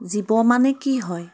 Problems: constant background noise